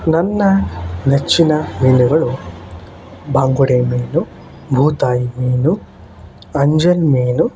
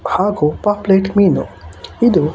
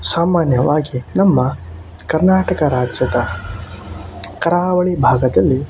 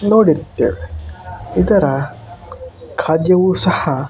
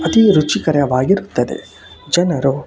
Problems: constant background noise